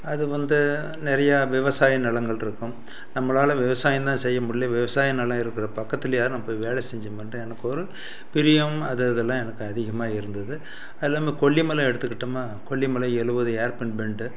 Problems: background sounds at intervals